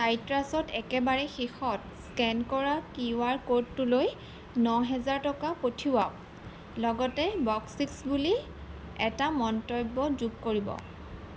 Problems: background sounds at intervals